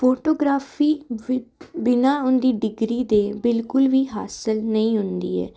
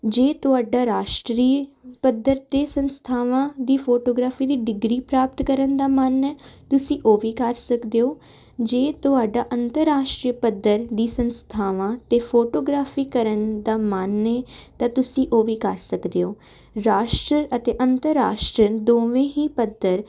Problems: none marked